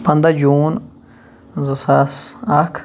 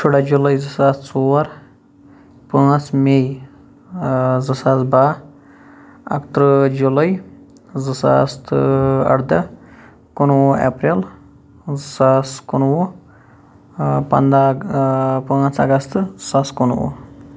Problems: background sounds at intervals